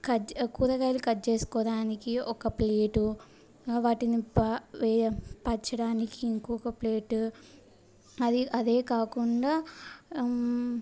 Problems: none marked